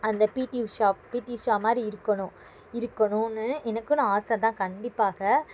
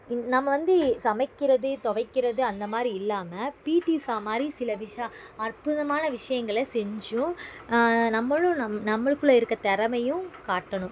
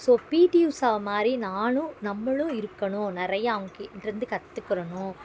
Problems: background sounds at intervals